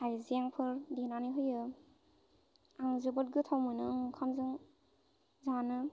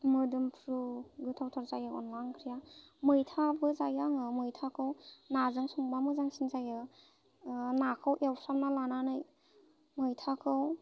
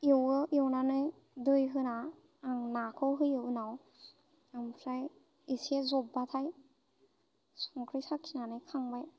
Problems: constant background noise